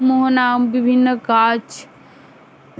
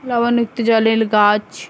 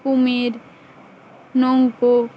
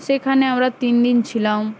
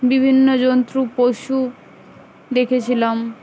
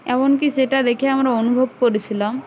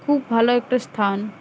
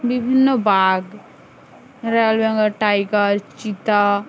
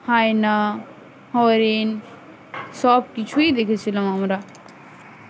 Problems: none marked